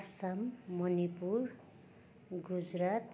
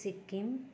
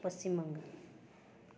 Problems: continuous background conversations